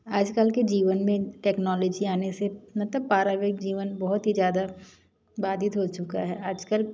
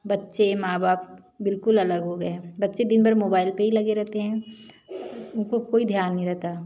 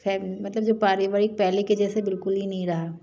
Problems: none marked